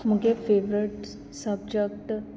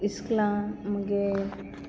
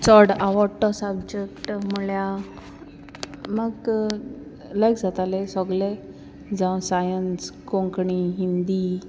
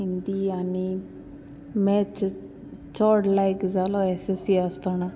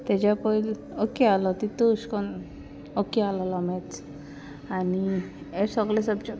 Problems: none marked